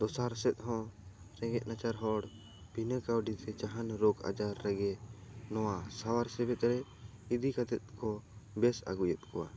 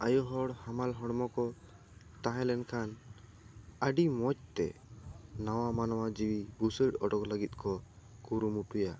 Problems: background sounds at intervals